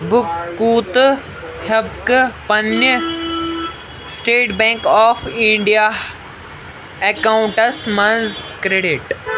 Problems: constant background noise, background conversations at intervals